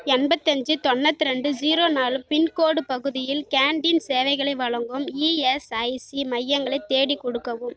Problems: none marked